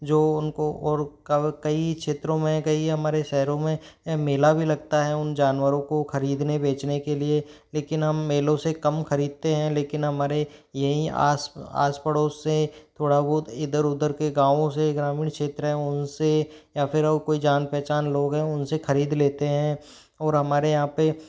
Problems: background sounds at intervals